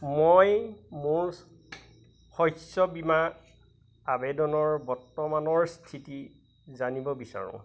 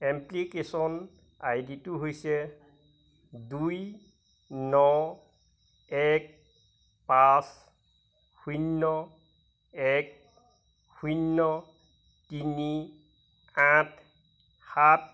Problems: constant background noise